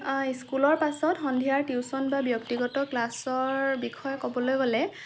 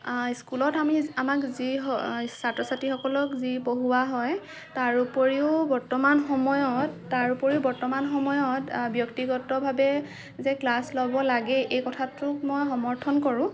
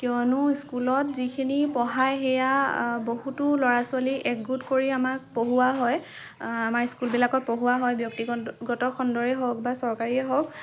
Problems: none marked